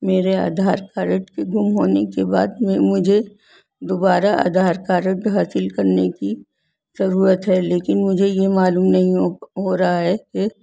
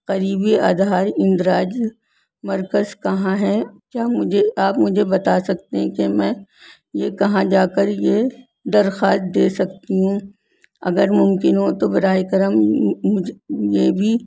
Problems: none marked